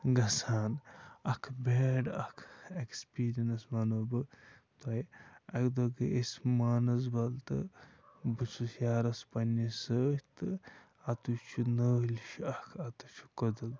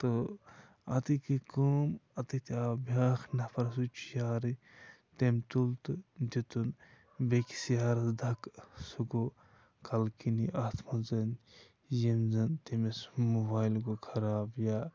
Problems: none marked